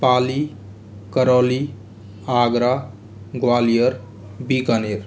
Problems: constant background noise, background conversations at intervals